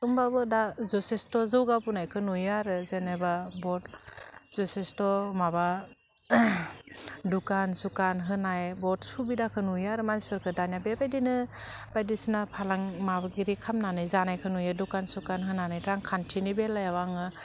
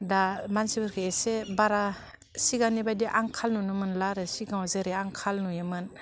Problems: low volume